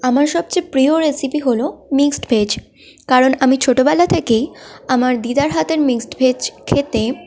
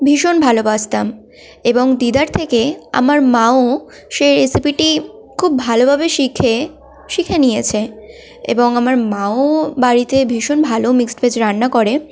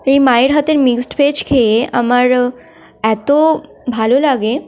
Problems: none marked